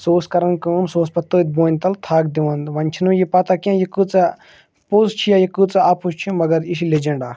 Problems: none marked